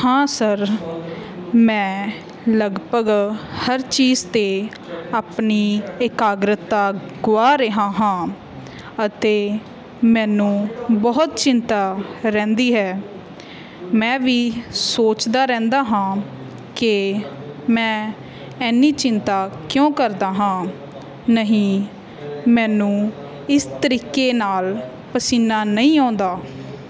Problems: continuous background conversations